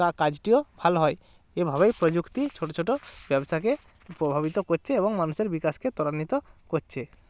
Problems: constant background noise